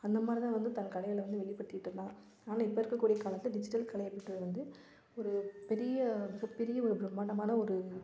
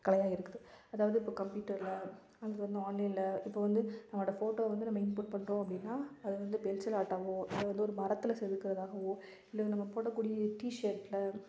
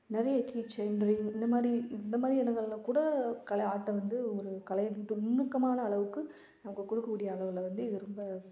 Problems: background sounds at intervals